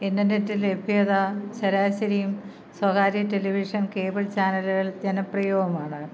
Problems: none marked